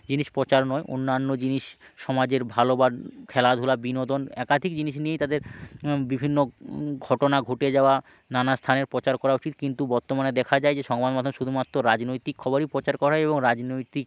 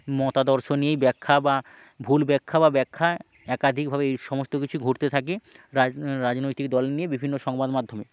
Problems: background sounds at intervals